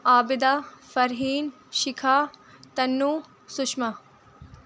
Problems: constant background noise